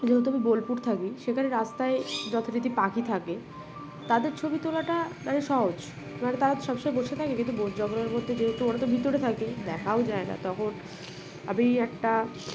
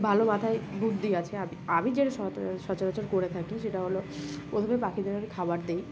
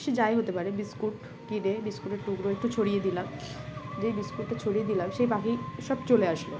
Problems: background sounds at intervals